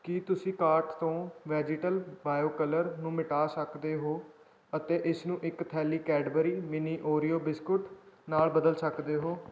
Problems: background sounds at intervals